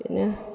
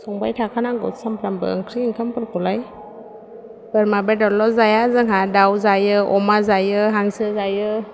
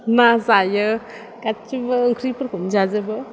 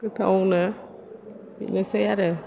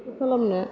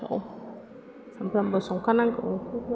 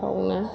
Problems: low volume